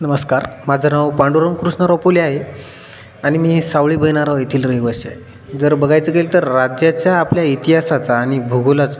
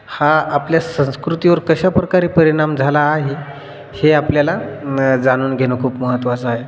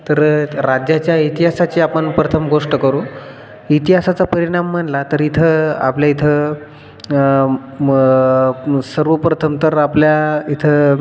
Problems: background sounds at intervals